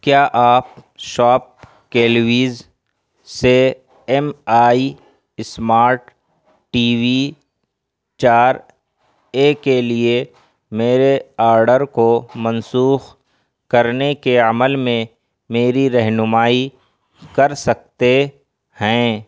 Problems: constant background noise